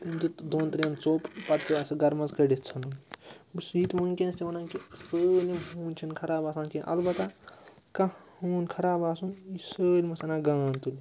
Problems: background sounds at intervals, background conversations at intervals